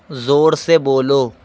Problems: constant background noise